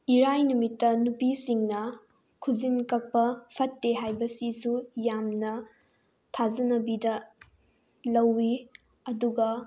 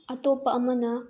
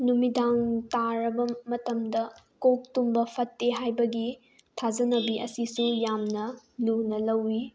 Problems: low volume